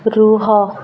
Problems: constant background noise